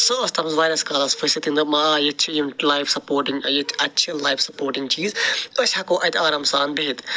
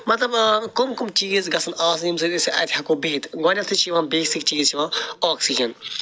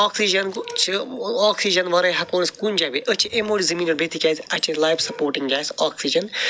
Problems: background sounds at intervals